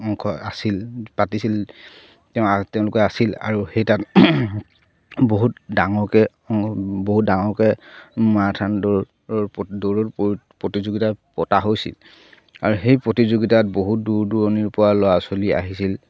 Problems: none marked